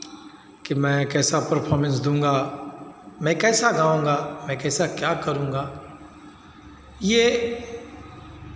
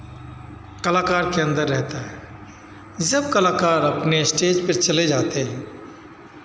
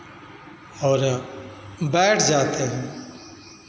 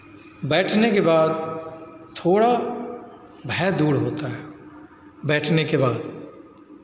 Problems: none marked